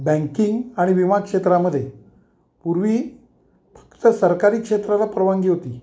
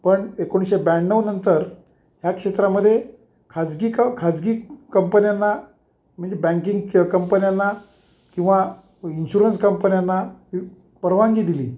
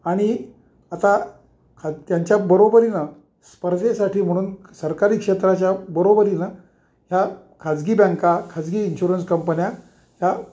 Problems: none marked